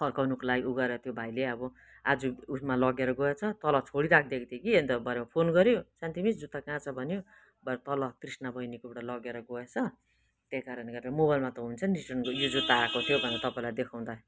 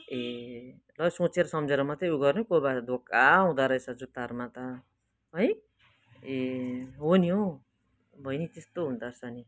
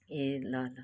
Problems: none marked